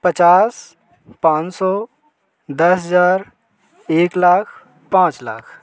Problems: constant background noise